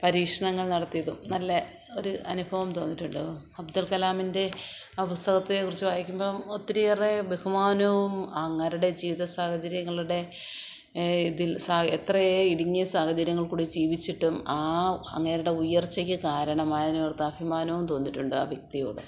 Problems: none marked